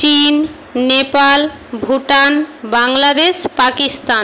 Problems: constant background noise